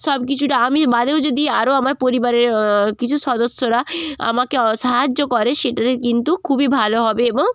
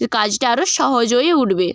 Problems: constant background noise